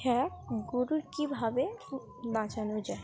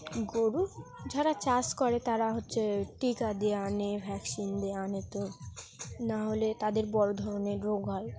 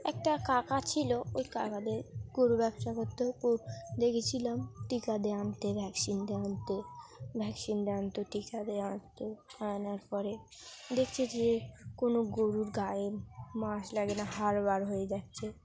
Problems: background conversations at intervals